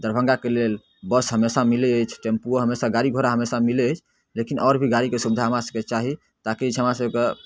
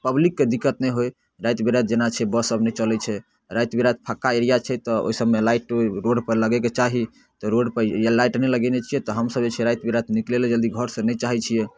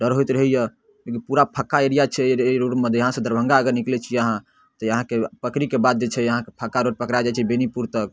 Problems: none marked